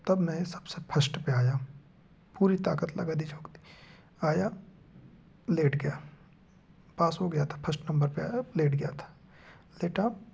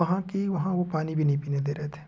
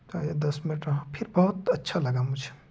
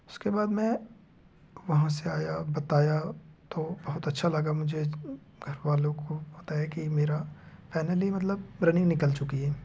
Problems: none marked